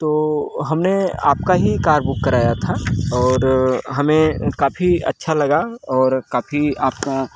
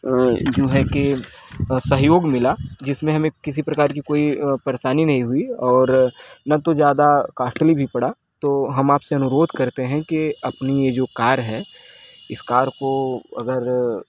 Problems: background sounds at intervals